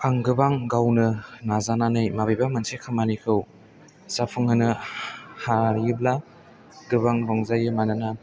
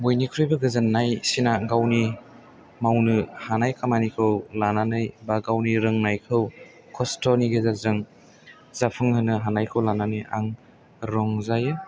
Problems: low volume